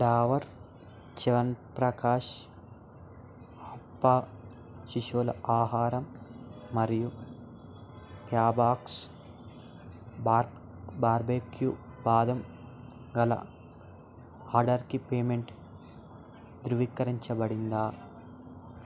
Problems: constant background noise